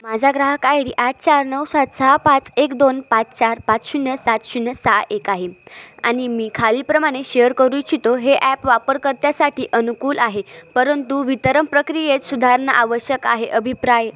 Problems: constant background noise, continuous background conversations